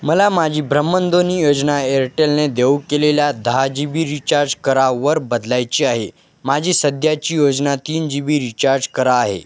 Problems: none marked